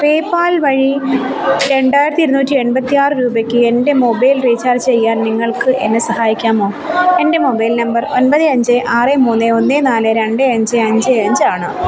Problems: constant background noise